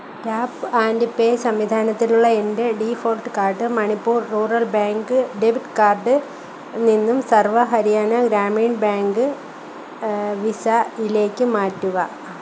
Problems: constant background noise